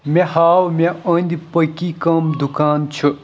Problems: none marked